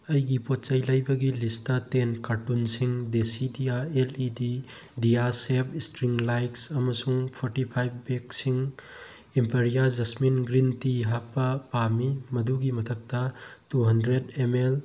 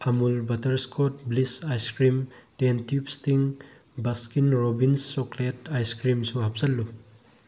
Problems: constant background noise